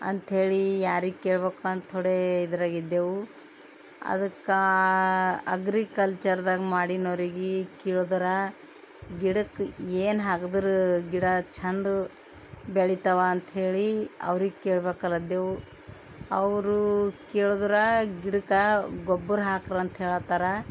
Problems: none marked